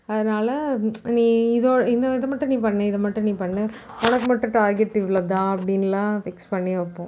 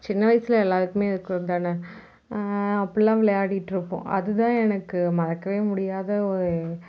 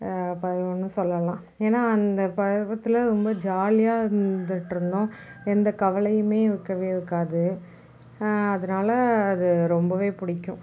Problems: background sounds at intervals